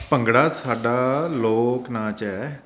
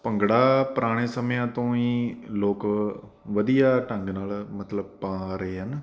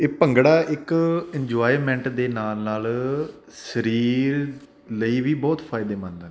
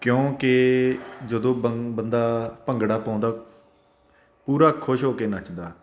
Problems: constant background noise